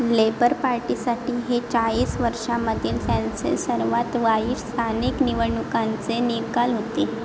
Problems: none marked